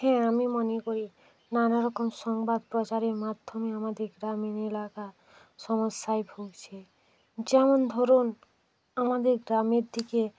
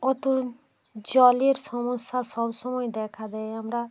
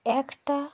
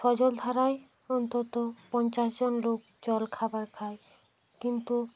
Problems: constant background noise